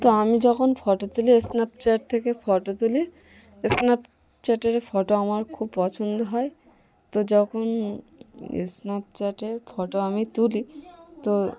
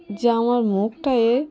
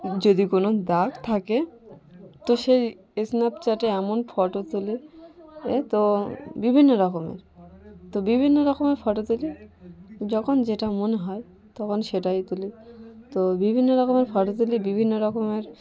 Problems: none marked